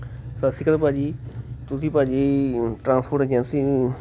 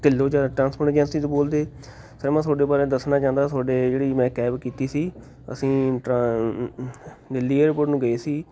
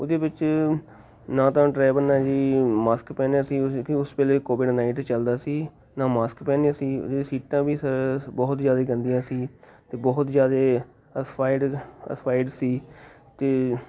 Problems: constant background noise, background conversations at intervals